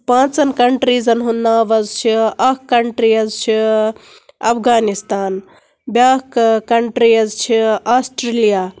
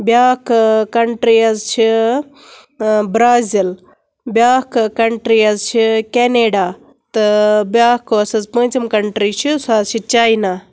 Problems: none marked